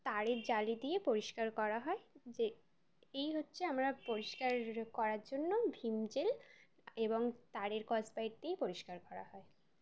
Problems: none marked